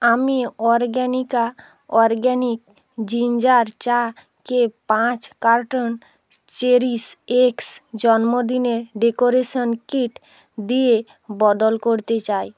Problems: none marked